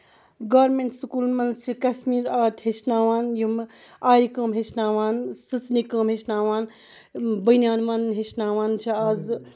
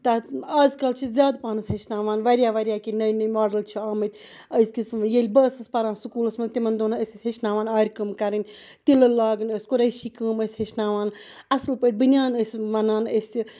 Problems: background sounds at intervals